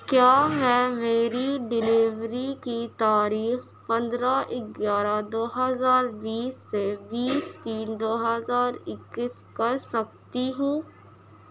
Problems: constant background noise